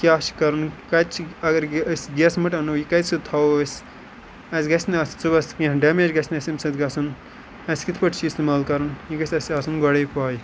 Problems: background sounds at intervals